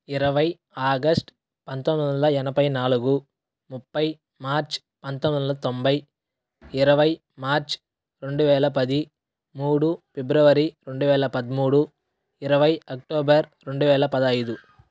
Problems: background sounds at intervals